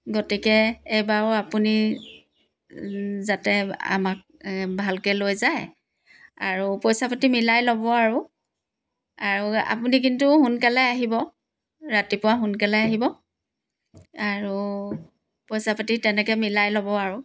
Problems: background sounds at intervals